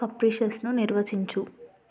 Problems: none marked